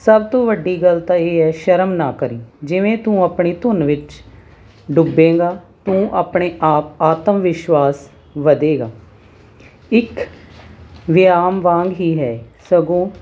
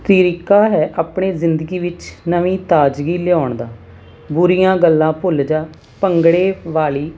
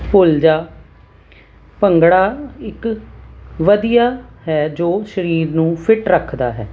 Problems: constant background noise